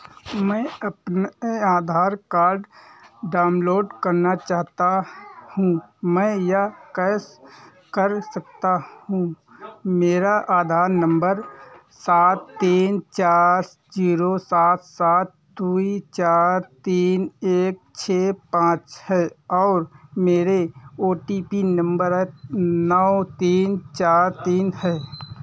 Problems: constant background noise